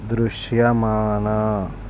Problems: none marked